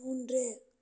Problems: low volume